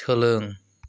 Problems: none marked